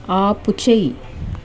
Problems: constant background noise